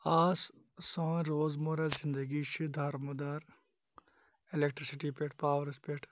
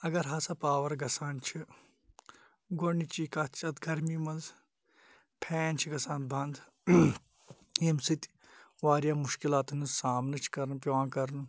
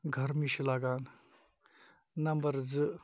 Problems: none marked